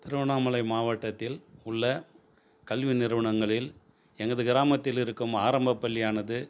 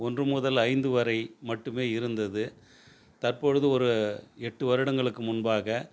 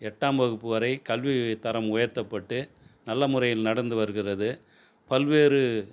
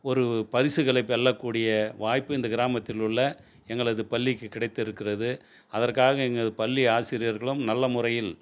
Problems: none marked